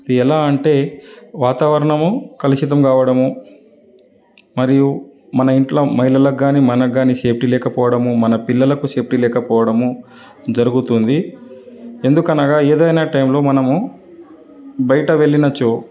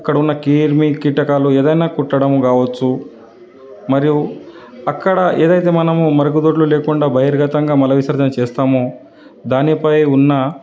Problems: none marked